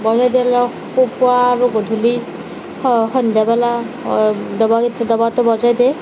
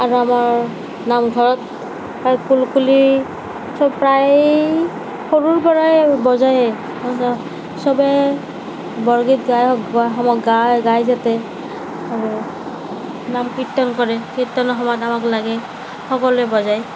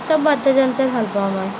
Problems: constant background noise, background conversations at intervals